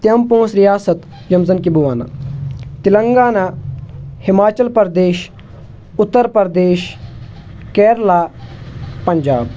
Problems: none marked